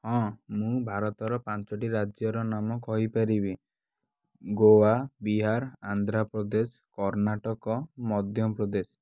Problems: none marked